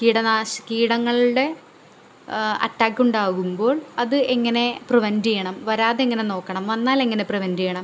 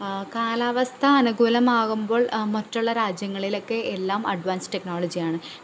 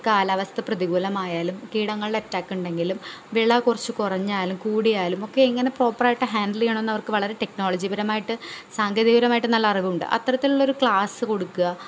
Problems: none marked